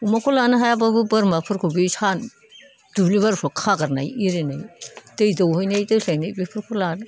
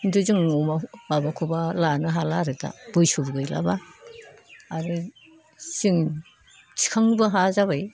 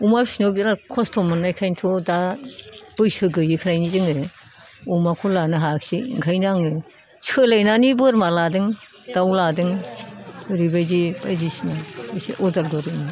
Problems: background conversations at intervals